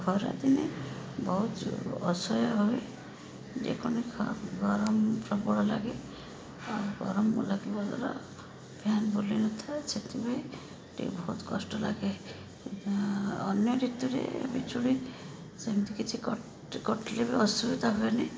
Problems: constant background noise, background conversations at intervals